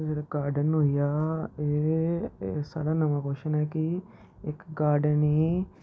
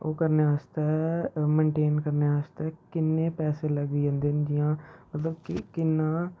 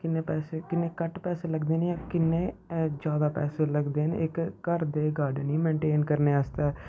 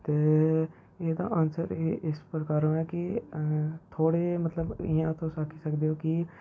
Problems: low volume